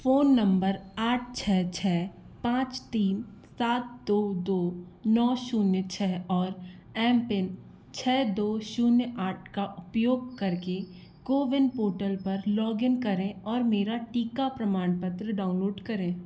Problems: constant background noise